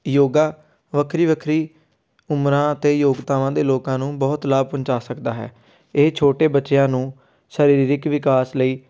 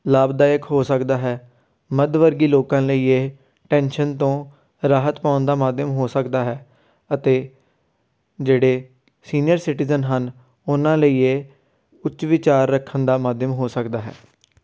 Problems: background sounds at intervals